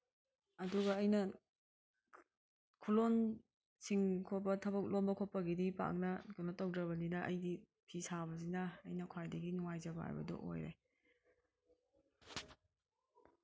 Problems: background sounds at intervals